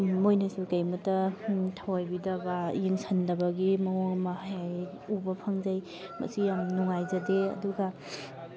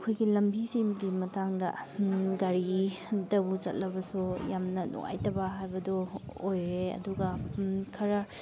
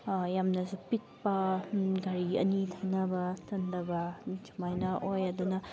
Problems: background sounds at intervals, background conversations at intervals